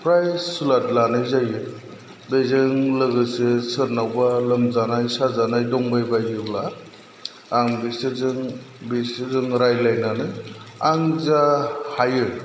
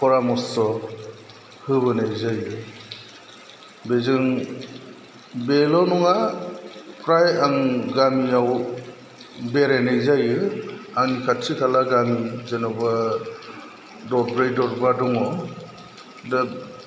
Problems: low volume